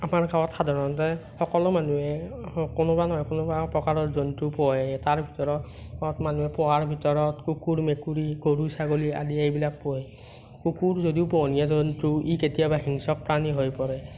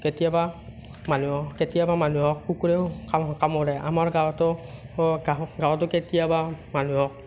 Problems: none marked